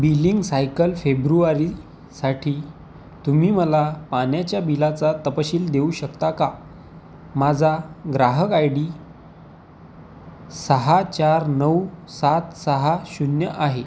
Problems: constant background noise